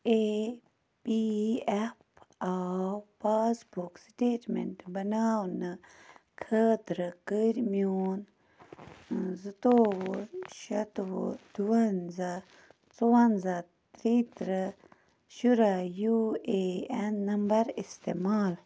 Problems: constant background noise